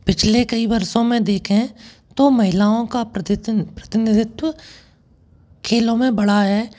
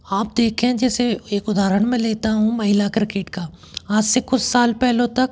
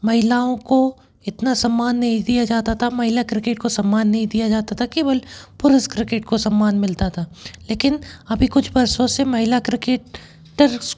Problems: background sounds at intervals